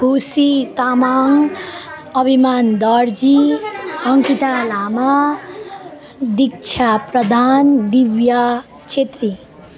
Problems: constant background noise